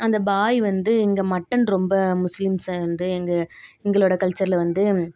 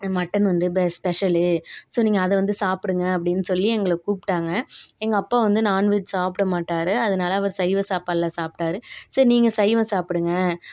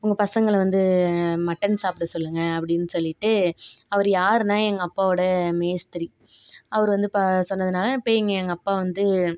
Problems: background sounds at intervals